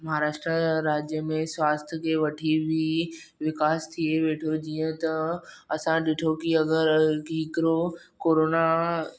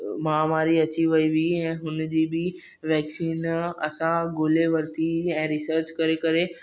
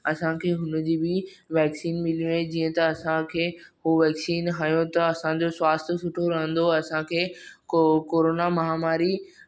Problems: none marked